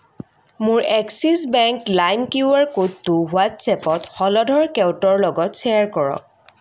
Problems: constant background noise